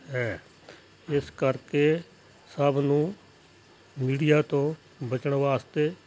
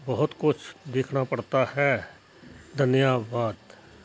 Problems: constant background noise, background conversations at intervals